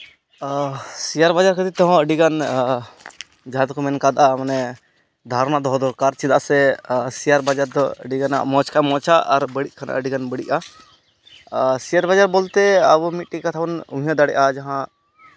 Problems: none marked